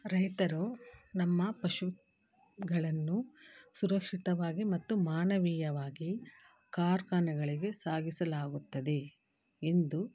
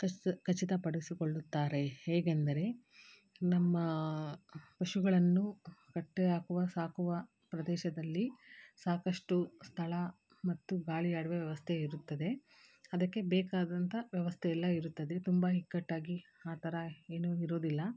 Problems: background sounds at intervals